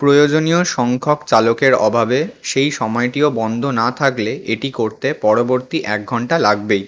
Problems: background sounds at intervals